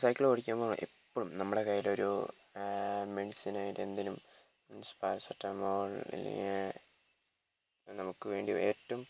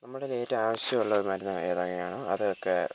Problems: constant background noise, low volume